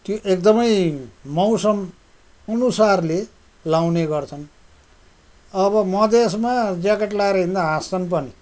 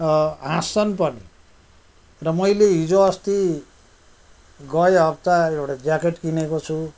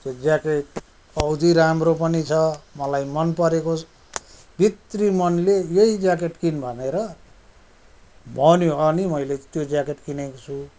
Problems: none marked